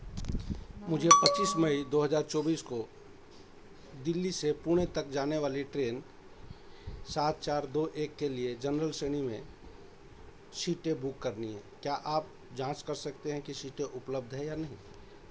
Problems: constant background noise